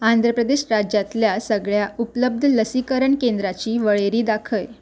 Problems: none marked